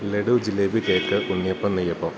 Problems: constant background noise